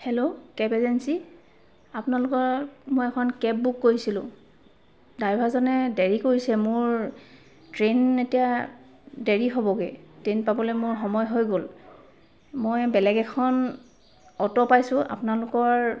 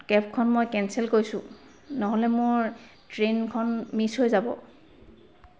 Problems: constant background noise